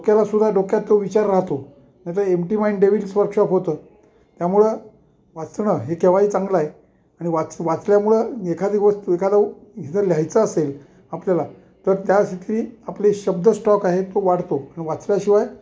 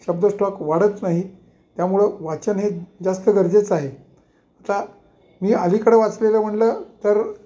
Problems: background sounds at intervals